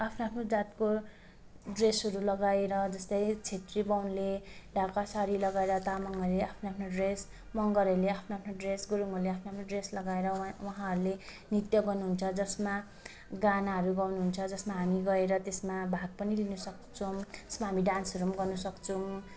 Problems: constant background noise